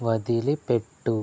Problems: low volume